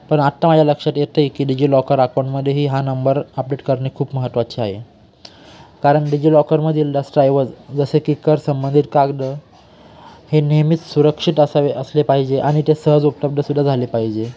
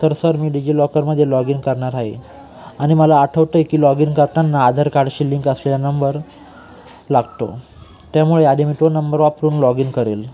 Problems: background sounds at intervals